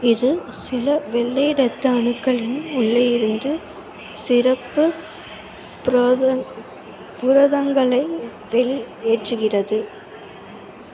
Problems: constant background noise